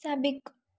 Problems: none marked